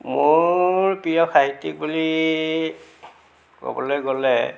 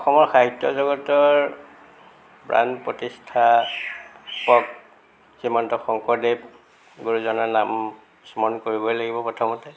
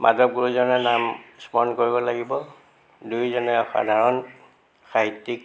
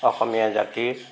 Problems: constant background noise